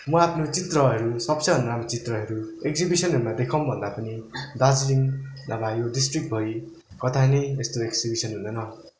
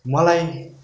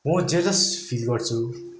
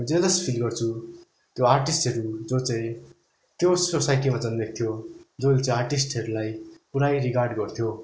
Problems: background sounds at intervals